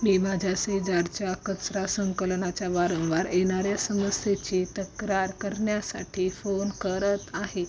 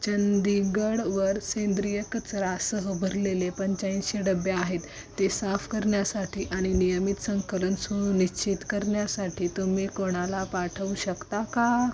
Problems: constant background noise